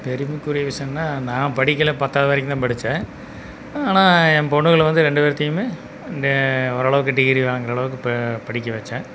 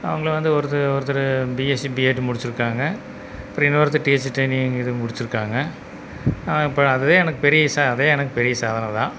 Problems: background sounds at intervals